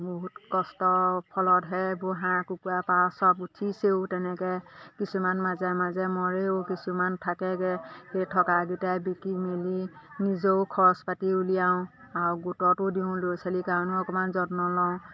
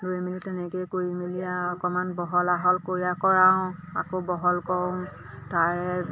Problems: constant background noise, background conversations at intervals